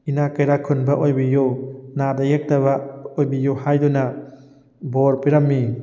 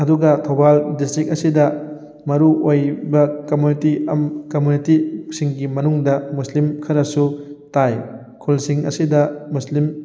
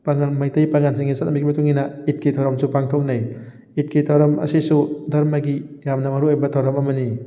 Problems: background sounds at intervals